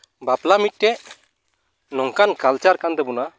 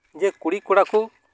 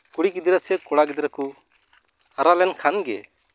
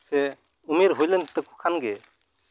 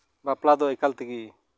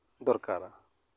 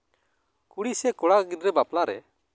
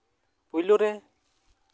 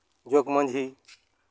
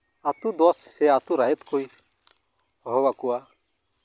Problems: background sounds at intervals